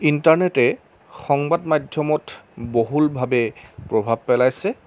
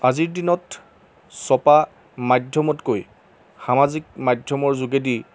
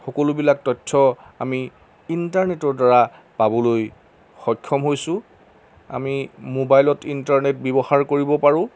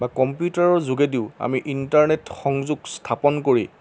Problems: constant background noise